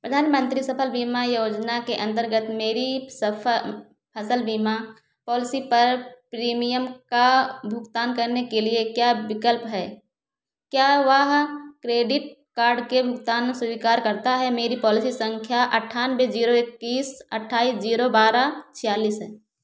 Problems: none marked